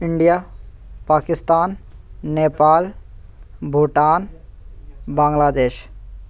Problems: constant background noise